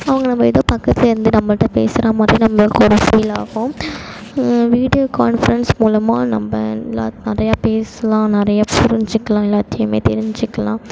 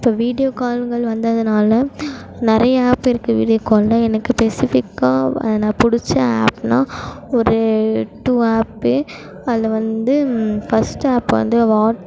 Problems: constant background noise